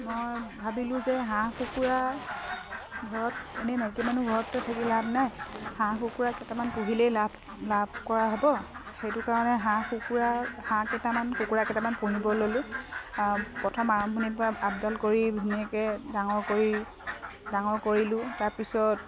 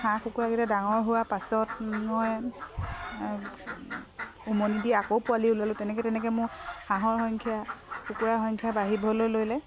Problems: constant background noise